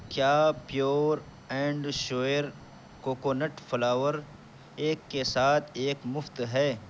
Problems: background sounds at intervals